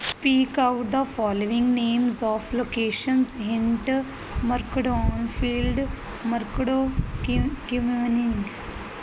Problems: none marked